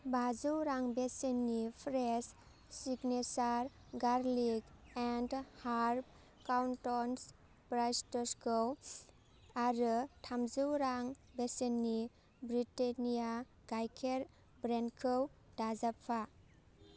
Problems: constant background noise